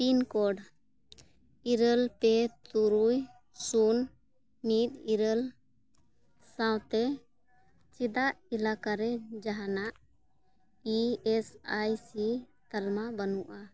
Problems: none marked